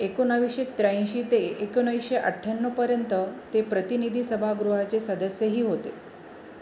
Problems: none marked